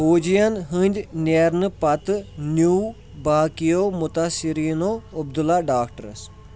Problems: none marked